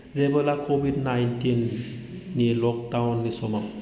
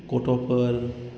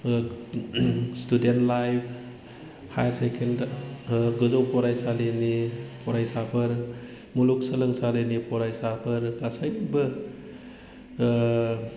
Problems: low volume